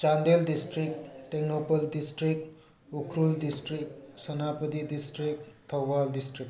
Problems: background sounds at intervals